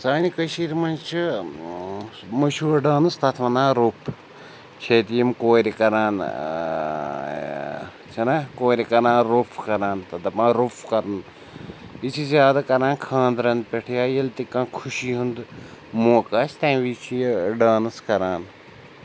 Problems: none marked